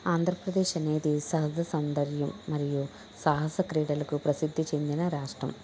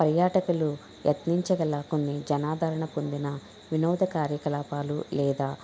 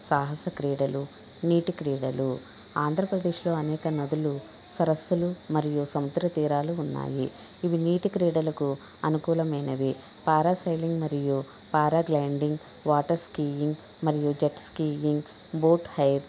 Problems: background sounds at intervals, background conversations at intervals